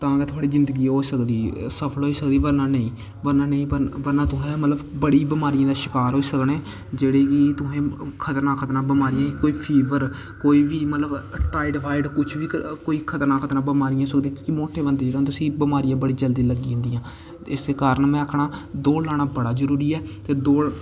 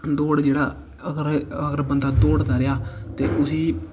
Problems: constant background noise